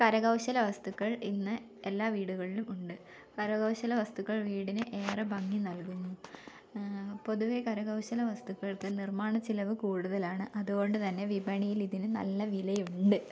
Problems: none marked